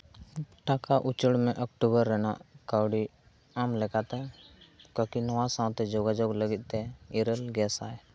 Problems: background sounds at intervals